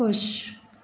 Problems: none marked